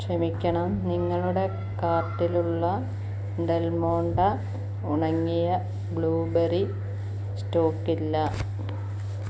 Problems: background sounds at intervals, low volume